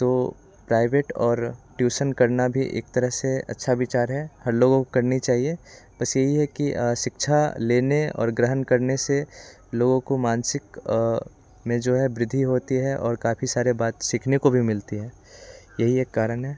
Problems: constant background noise, continuous background conversations